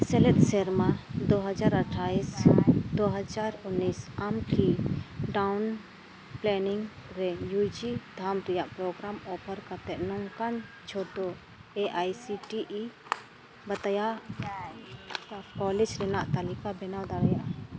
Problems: constant background noise, continuous background conversations